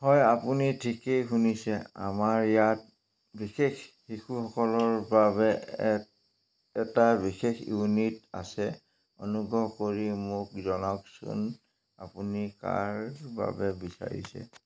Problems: none marked